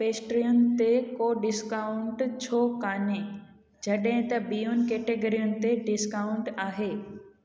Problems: background sounds at intervals, echo